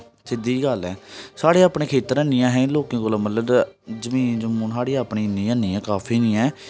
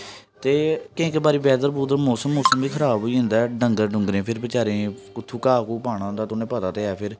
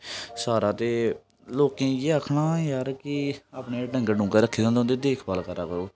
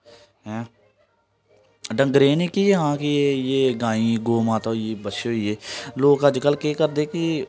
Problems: none marked